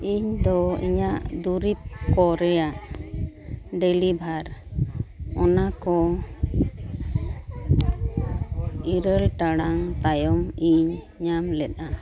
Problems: constant background noise, continuous background conversations